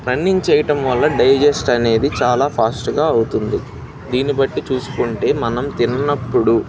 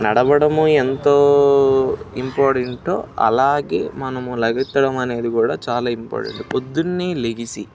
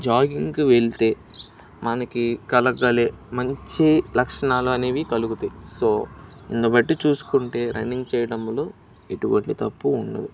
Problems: none marked